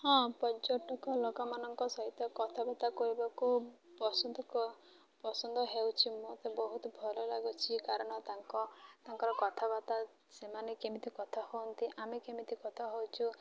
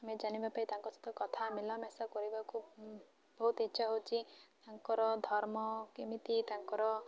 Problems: constant background noise, continuous background conversations